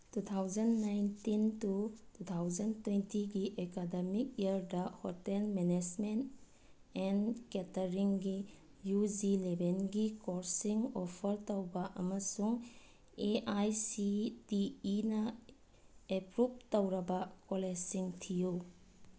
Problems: low volume